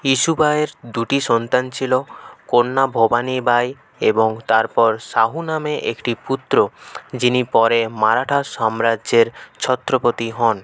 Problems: none marked